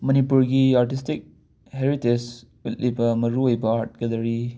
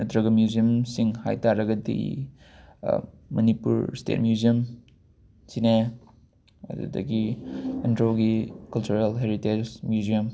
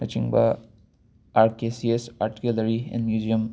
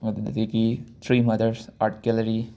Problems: background sounds at intervals